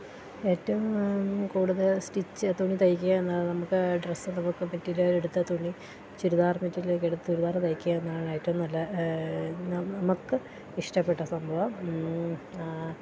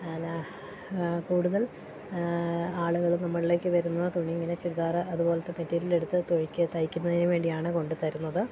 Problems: constant background noise